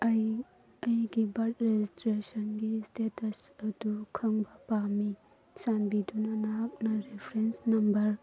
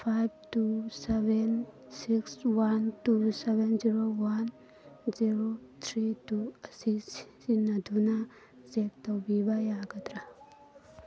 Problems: constant background noise